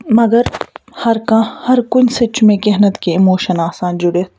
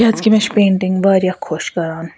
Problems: none marked